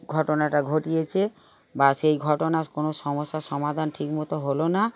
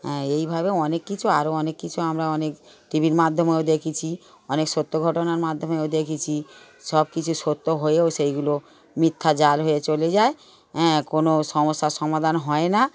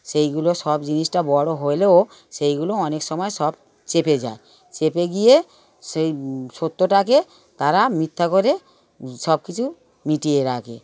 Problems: background sounds at intervals, background conversations at intervals